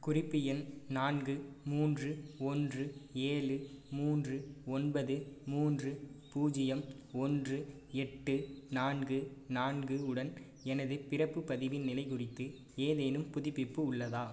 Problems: none marked